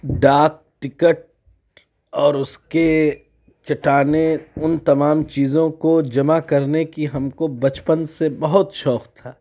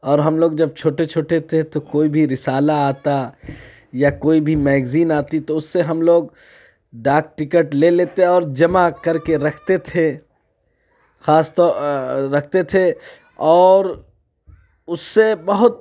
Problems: background sounds at intervals